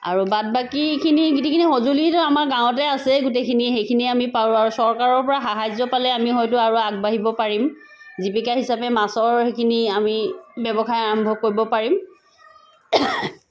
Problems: constant background noise